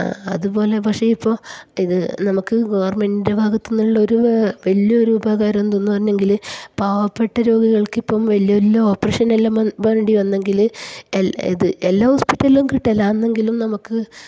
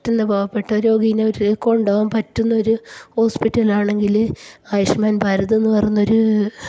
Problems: none marked